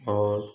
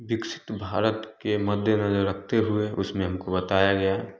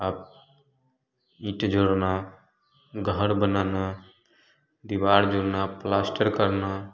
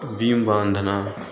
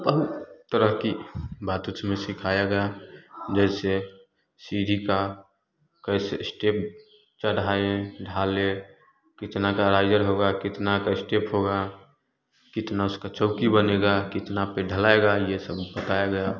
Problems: constant background noise, continuous background conversations